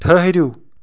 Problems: background sounds at intervals